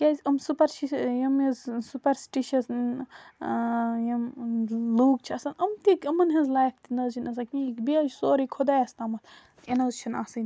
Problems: none marked